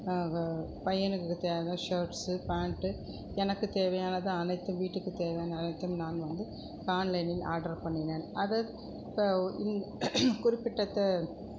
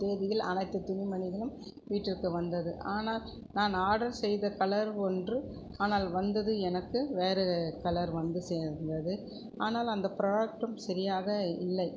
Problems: constant background noise, background conversations at intervals